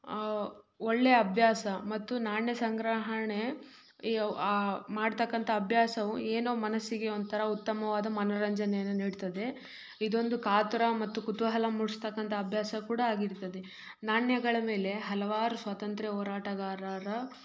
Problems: none marked